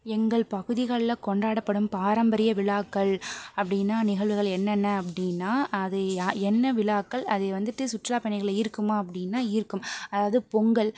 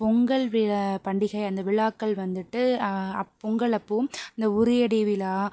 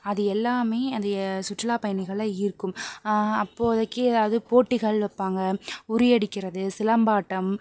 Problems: none marked